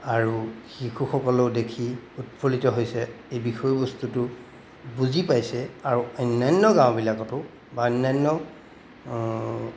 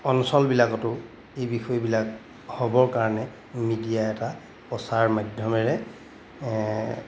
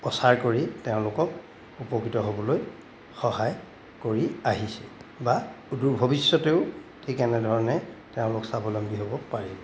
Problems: background sounds at intervals